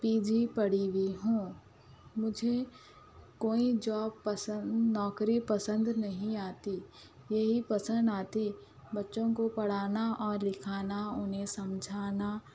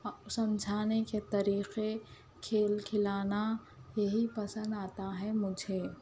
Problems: background sounds at intervals